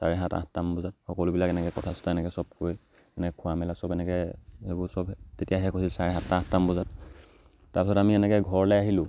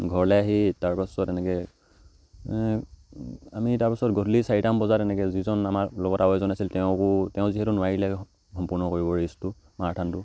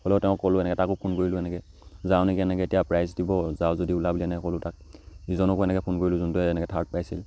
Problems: none marked